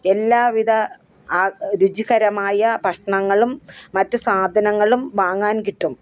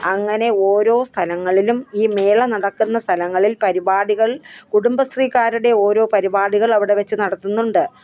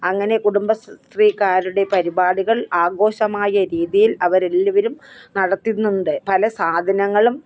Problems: background sounds at intervals, background conversations at intervals